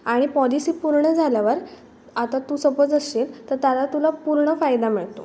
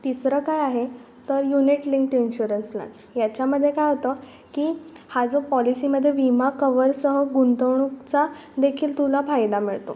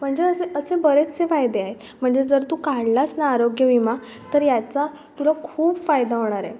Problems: background sounds at intervals